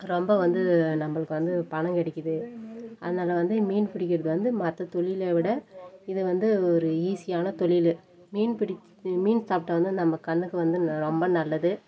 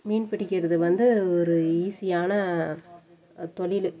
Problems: none marked